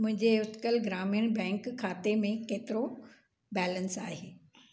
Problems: none marked